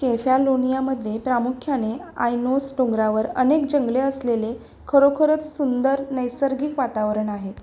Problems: background conversations at intervals